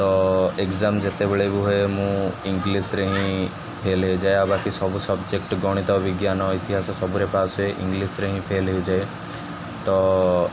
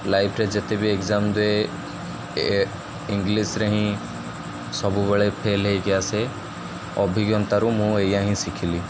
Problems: none marked